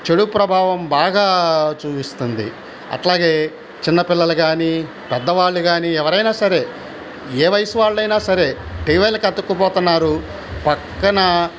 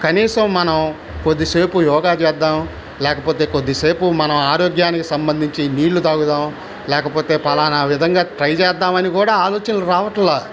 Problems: constant background noise